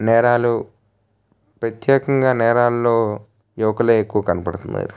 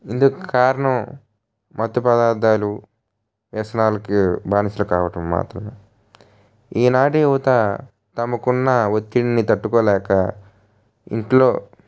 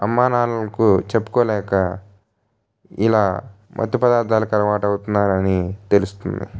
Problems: none marked